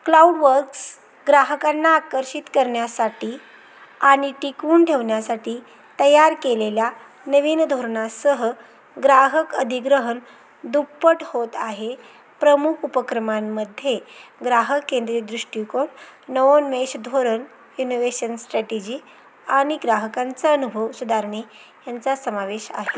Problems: constant background noise, background conversations at intervals